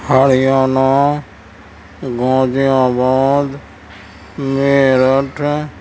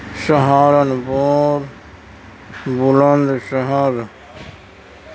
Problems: constant background noise, low volume